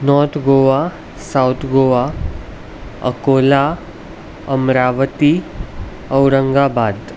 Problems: constant background noise